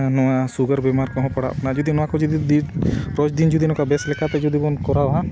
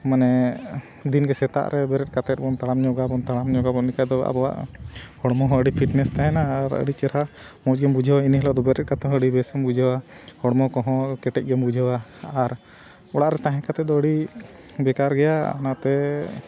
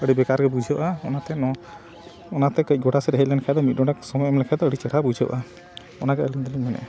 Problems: none marked